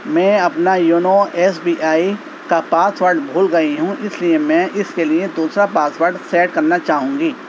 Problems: constant background noise